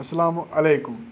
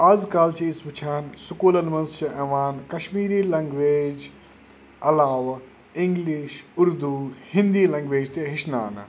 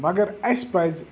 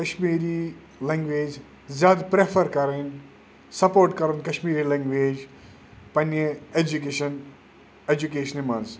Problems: constant background noise